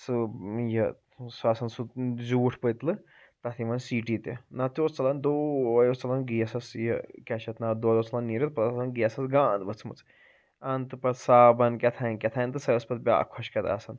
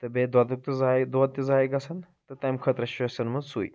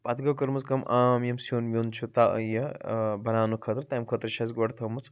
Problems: none marked